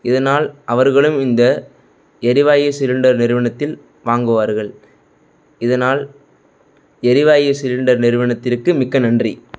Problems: background sounds at intervals